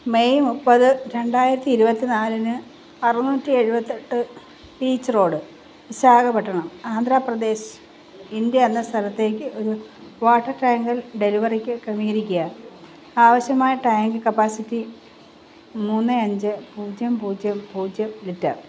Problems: constant background noise